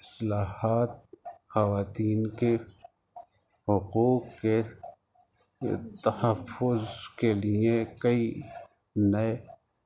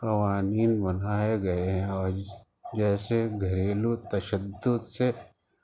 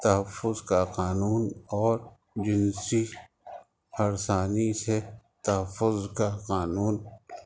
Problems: constant background noise